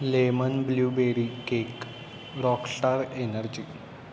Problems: constant background noise